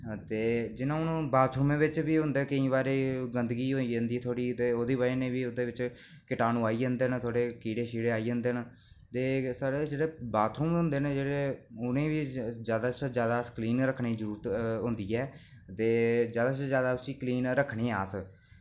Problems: none marked